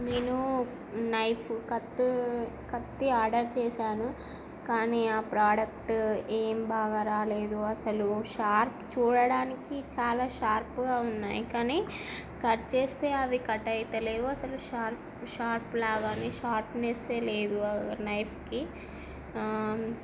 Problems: constant background noise